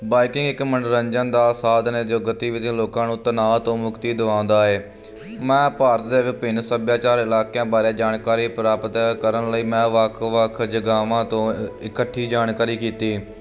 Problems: constant background noise